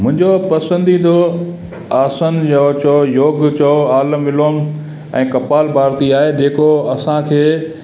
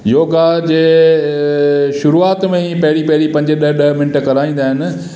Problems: constant background noise, echo